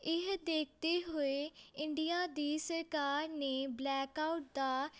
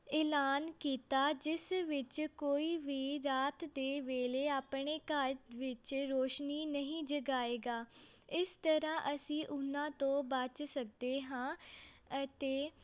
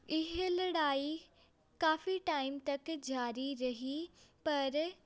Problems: background sounds at intervals, background conversations at intervals